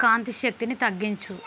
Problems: continuous background conversations